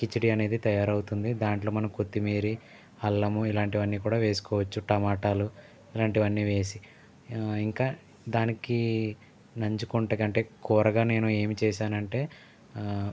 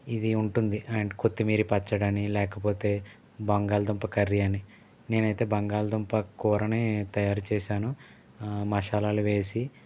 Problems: none marked